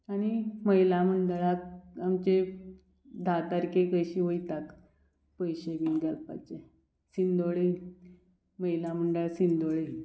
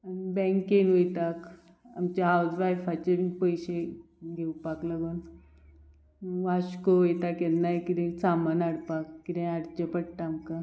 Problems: background sounds at intervals